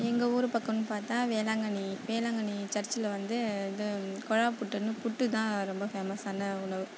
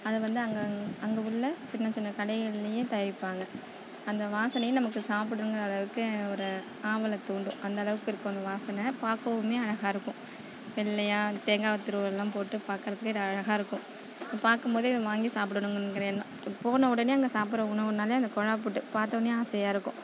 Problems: constant background noise, background conversations at intervals